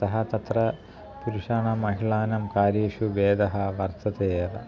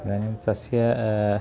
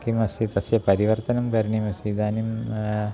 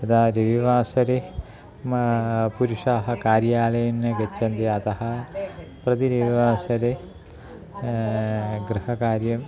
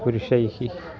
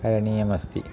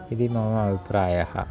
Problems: continuous background conversations